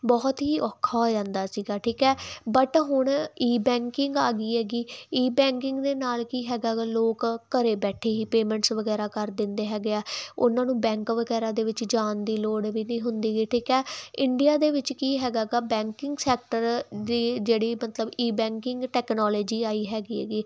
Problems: background sounds at intervals